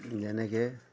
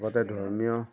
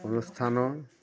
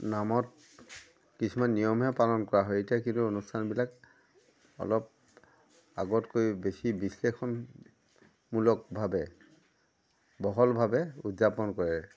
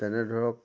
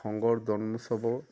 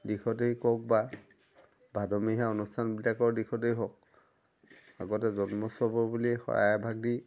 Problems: constant background noise